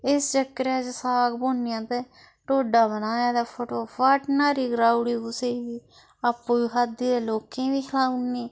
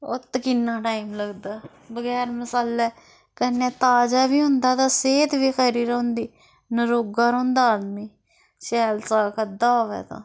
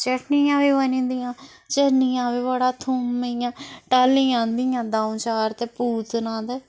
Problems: constant background noise